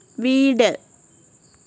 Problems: constant background noise